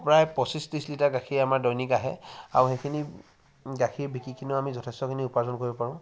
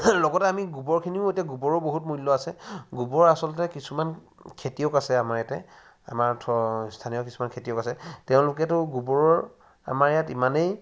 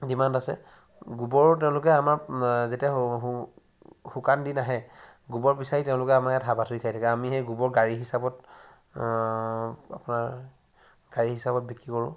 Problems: background sounds at intervals